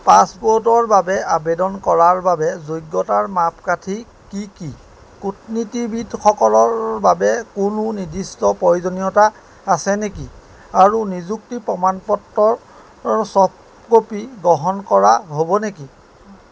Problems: background sounds at intervals